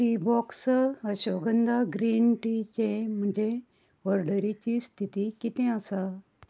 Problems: background sounds at intervals